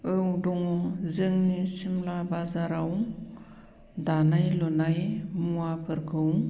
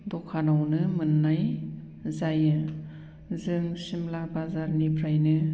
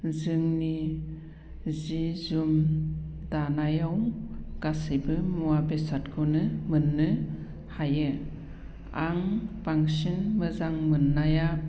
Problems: low volume